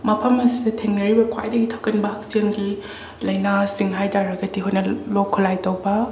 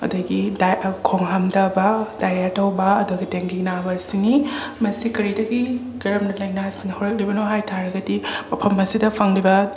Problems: background sounds at intervals